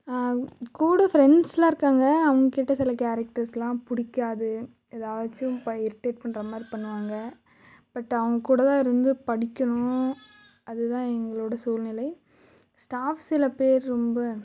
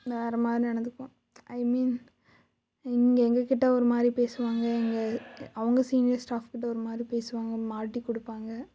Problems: none marked